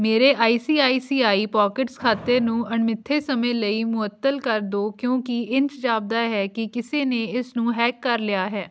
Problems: background sounds at intervals